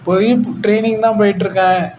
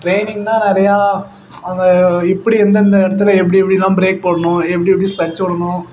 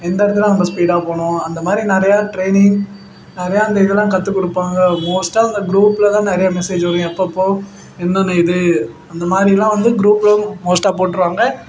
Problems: constant background noise